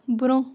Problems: constant background noise